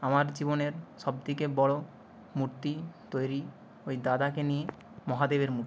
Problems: constant background noise